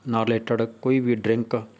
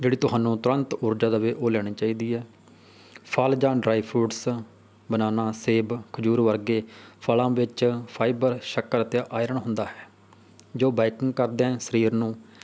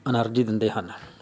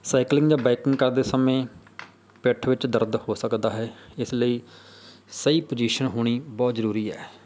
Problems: none marked